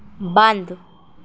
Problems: constant background noise